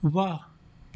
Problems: none marked